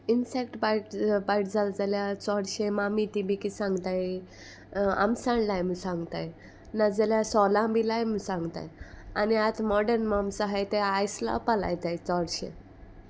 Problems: none marked